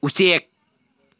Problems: none marked